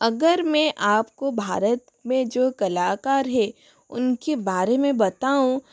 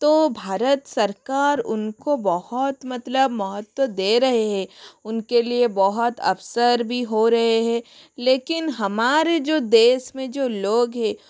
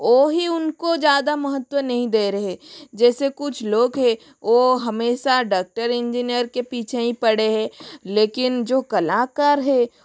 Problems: none marked